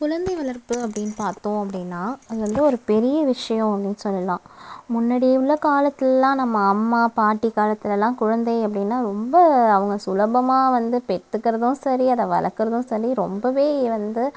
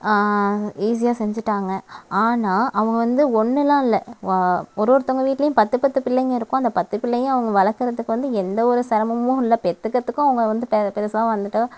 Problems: constant background noise